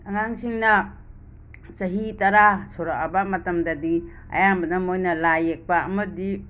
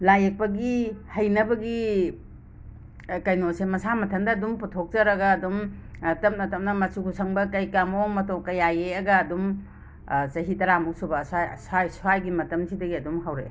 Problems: constant background noise